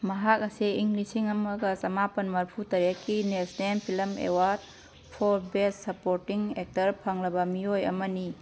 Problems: none marked